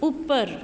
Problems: constant background noise